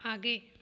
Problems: none marked